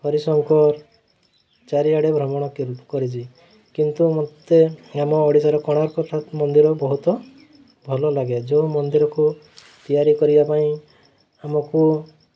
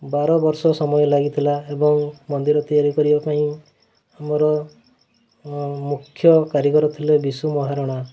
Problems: constant background noise